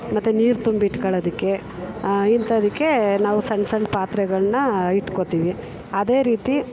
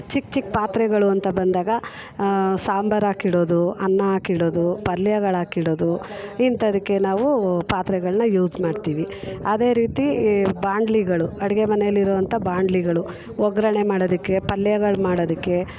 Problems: background conversations at intervals